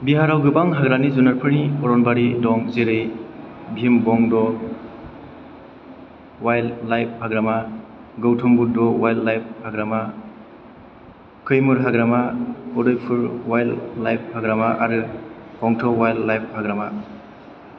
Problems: none marked